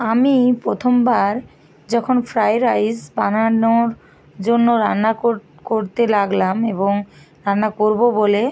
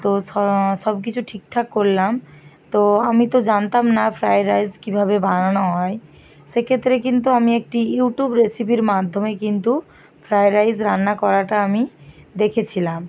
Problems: constant background noise